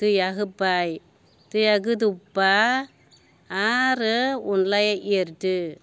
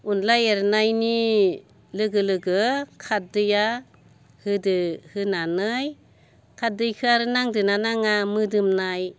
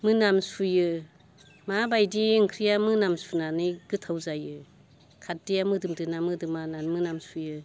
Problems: constant background noise